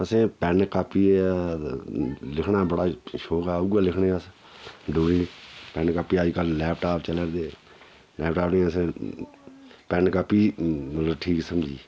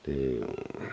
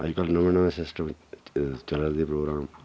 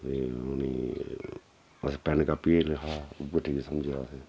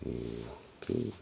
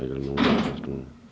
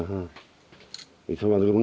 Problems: background sounds at intervals